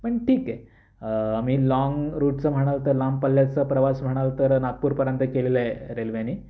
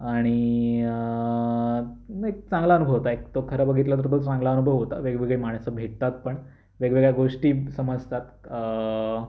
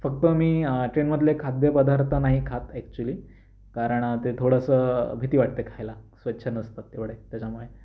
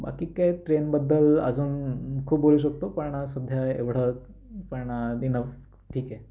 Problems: none marked